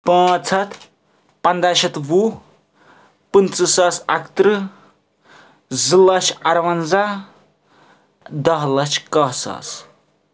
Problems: none marked